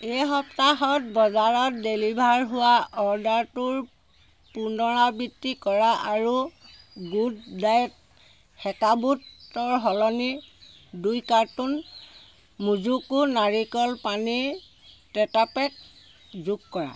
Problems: constant background noise